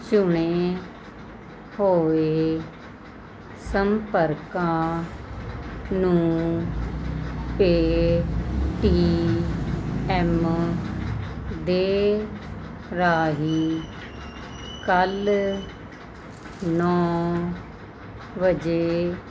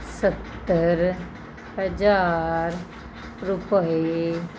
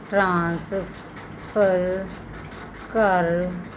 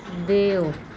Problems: none marked